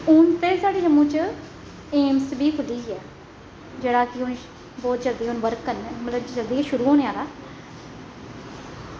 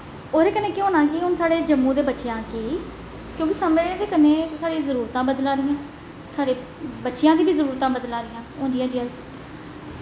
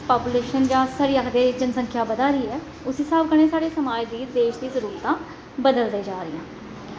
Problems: constant background noise, echo